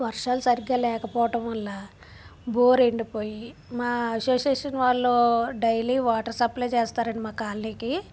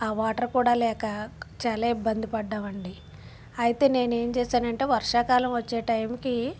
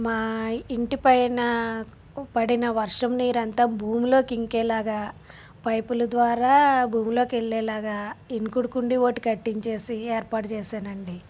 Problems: background sounds at intervals